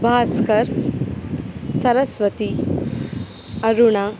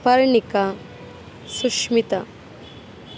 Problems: none marked